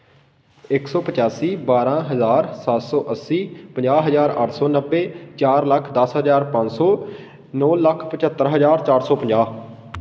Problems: constant background noise